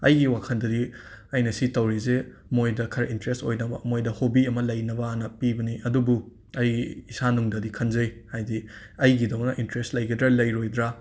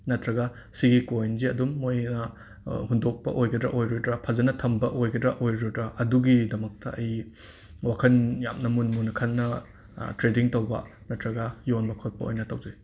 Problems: none marked